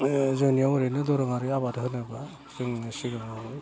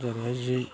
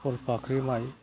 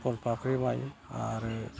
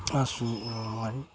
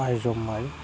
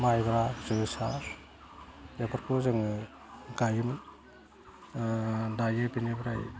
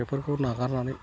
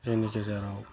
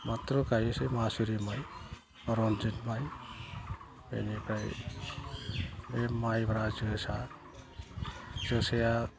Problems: constant background noise, low volume